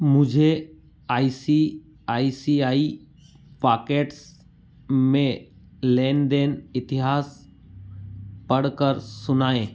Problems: background sounds at intervals